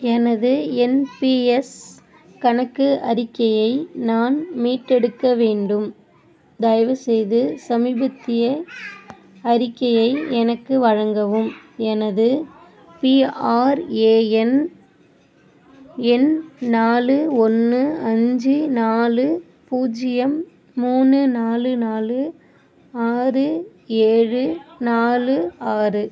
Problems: none marked